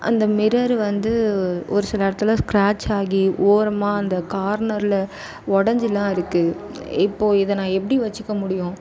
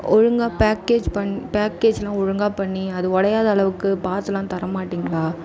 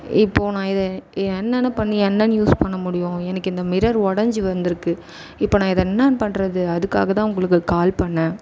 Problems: background conversations at intervals